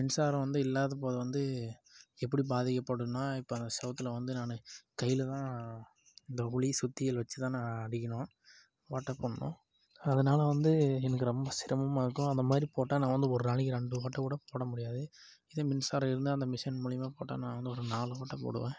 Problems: low volume